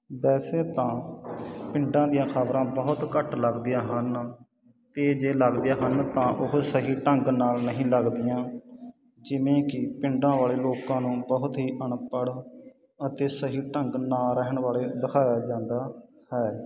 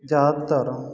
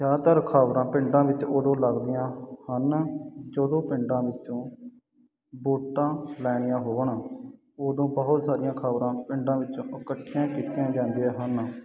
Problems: constant background noise